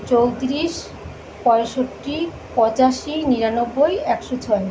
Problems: background sounds at intervals